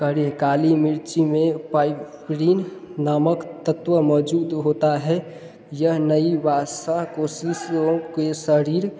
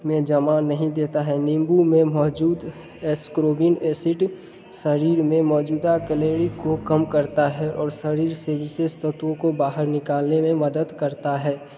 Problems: background sounds at intervals